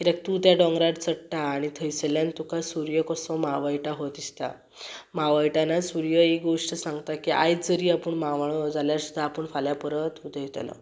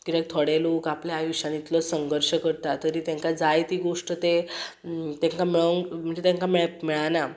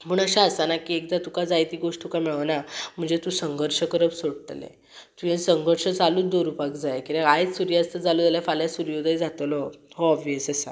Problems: none marked